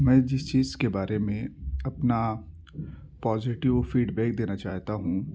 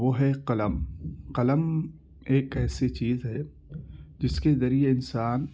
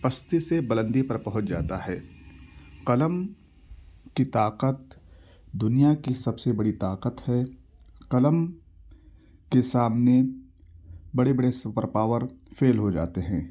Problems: none marked